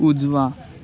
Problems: constant background noise